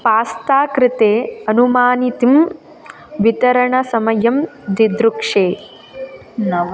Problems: constant background noise, continuous background conversations